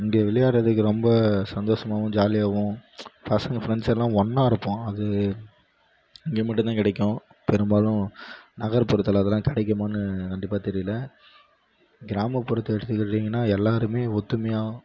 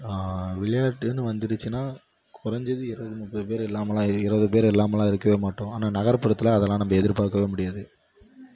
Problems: none marked